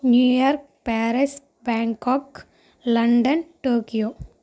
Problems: constant background noise